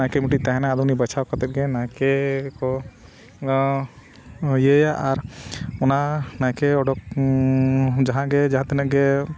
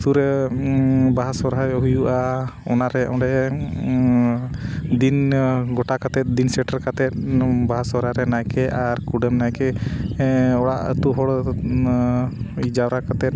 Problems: background sounds at intervals